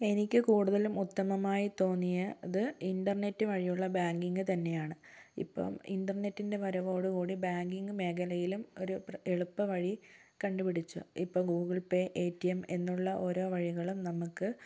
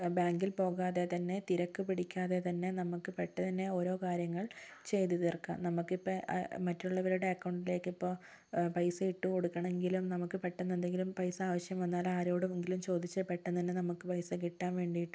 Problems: low volume